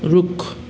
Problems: background sounds at intervals